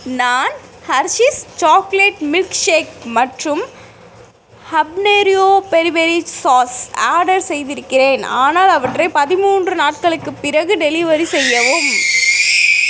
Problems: background sounds at intervals